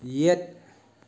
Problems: none marked